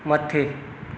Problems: constant background noise, echo